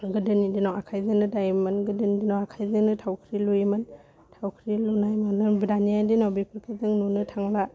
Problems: constant background noise